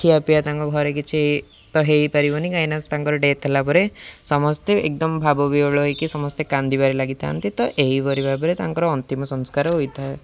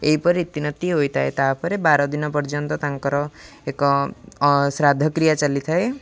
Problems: background sounds at intervals